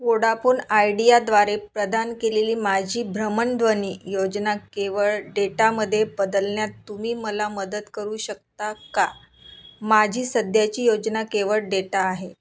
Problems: constant background noise